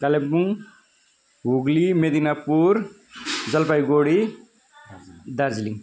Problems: none marked